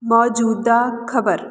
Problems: background sounds at intervals